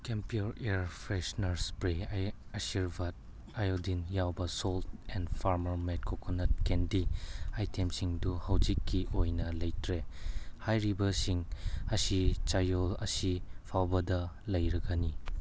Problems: none marked